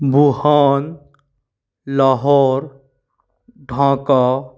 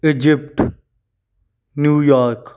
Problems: background sounds at intervals